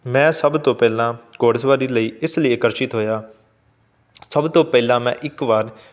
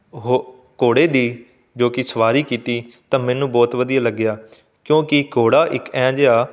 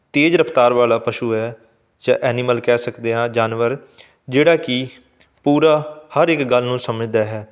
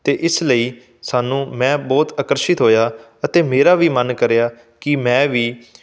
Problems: none marked